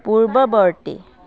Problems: background conversations at intervals